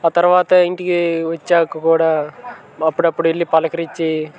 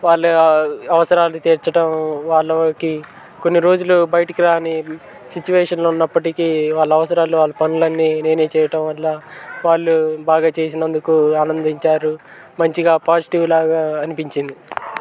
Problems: constant background noise, continuous background conversations